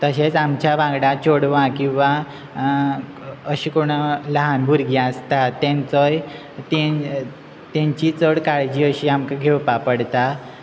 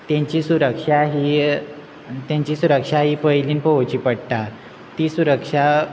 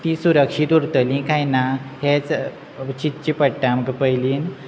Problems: constant background noise